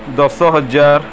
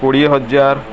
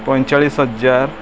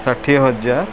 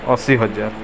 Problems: constant background noise